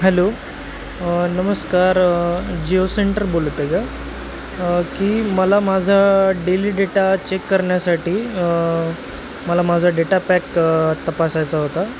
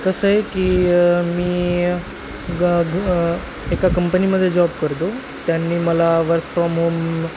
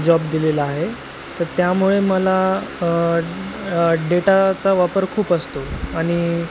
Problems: constant background noise, background conversations at intervals